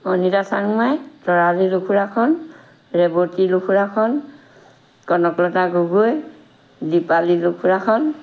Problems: none marked